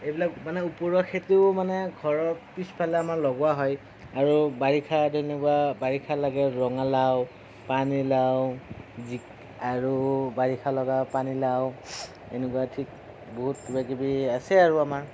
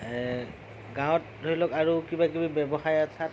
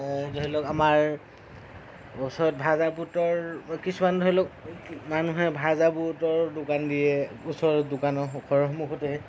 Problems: constant background noise